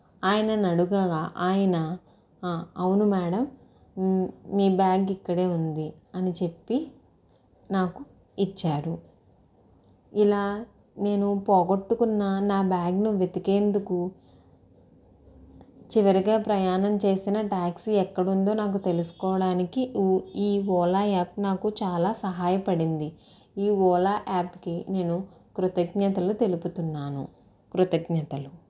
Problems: constant background noise